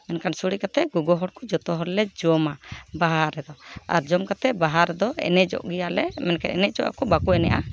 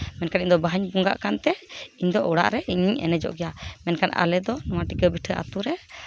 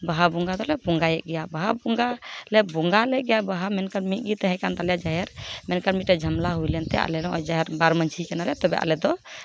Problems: background sounds at intervals, background conversations at intervals